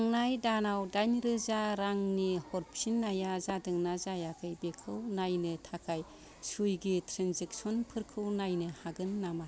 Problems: background conversations at intervals